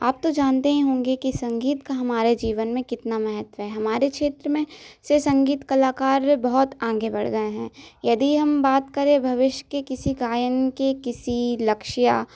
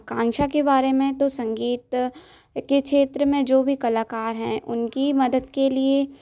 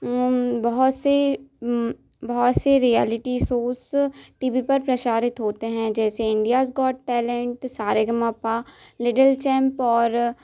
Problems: constant background noise